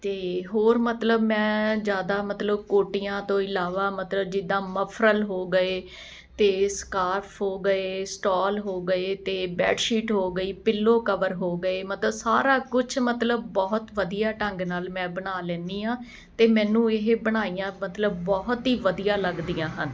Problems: none marked